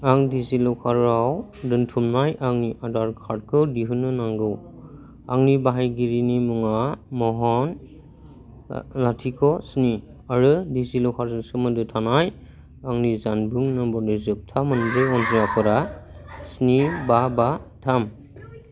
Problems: none marked